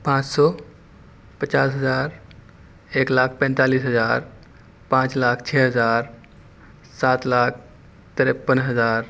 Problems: constant background noise